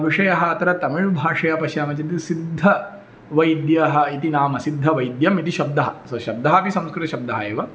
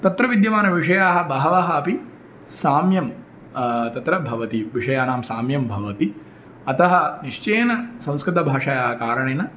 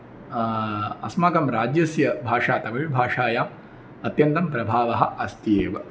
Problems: none marked